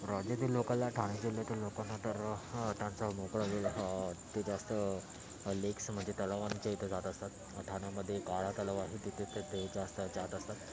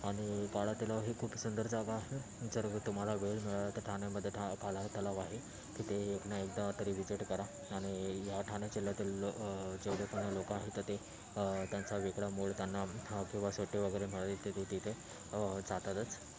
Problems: constant background noise, background conversations at intervals